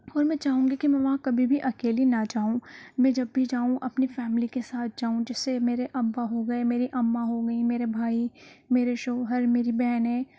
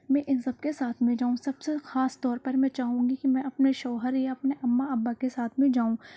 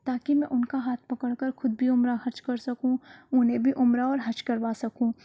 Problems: low volume